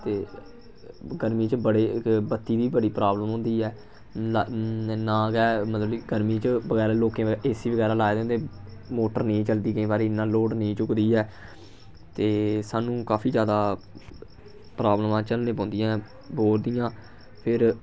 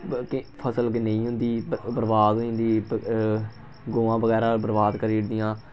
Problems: background sounds at intervals